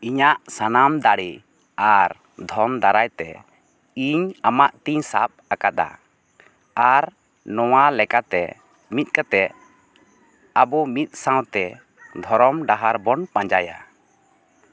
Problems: none marked